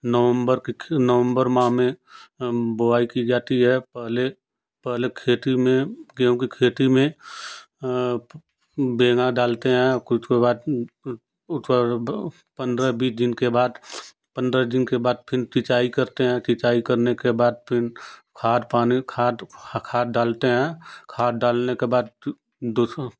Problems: constant background noise